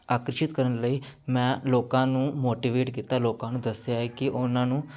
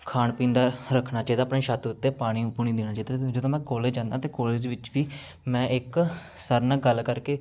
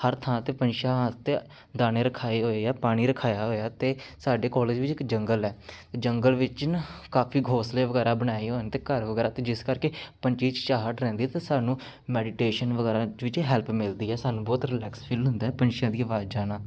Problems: none marked